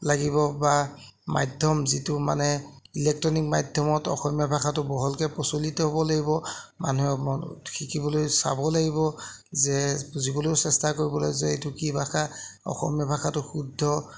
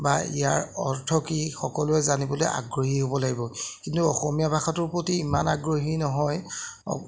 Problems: none marked